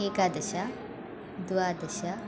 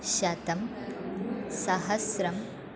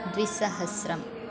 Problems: constant background noise